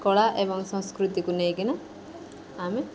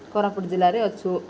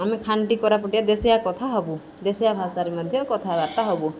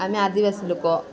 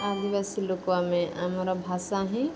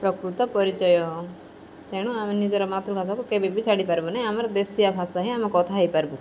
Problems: constant background noise